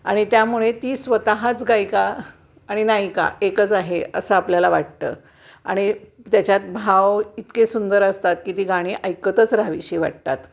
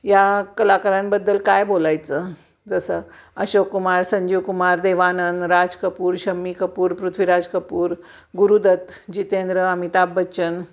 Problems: constant background noise